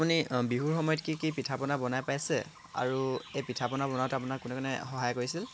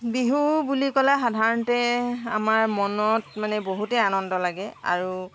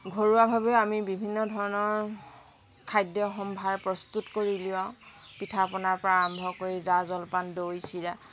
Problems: constant background noise